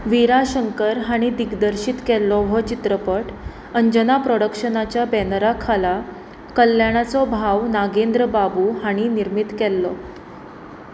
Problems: constant background noise